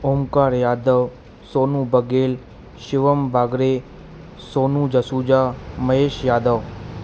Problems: constant background noise, echo